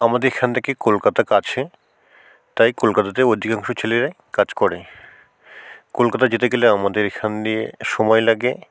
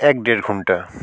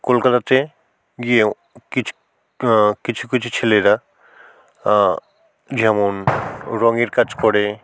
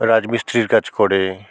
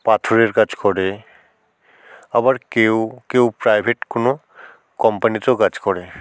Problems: constant background noise